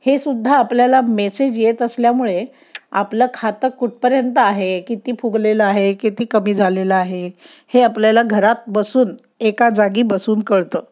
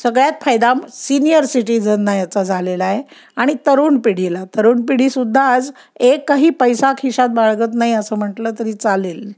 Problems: none marked